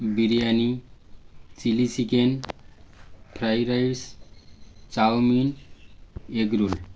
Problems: constant background noise